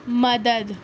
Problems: constant background noise